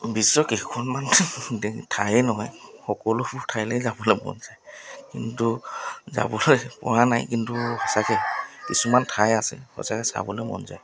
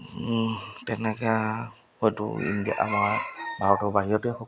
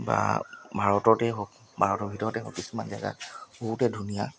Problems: background sounds at intervals